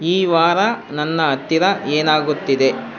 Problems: none marked